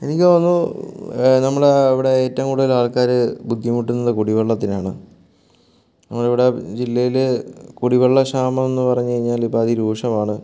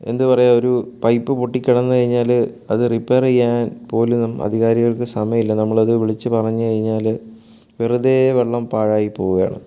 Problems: none marked